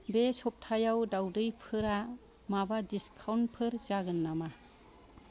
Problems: background conversations at intervals